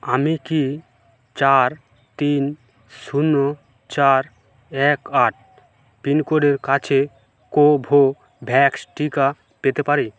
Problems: background sounds at intervals